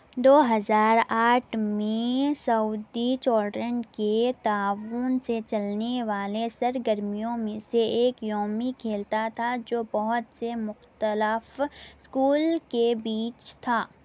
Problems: constant background noise